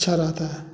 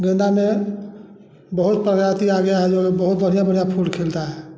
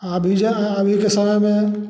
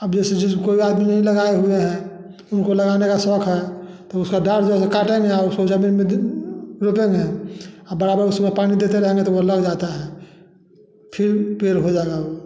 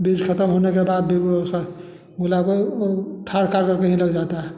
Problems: none marked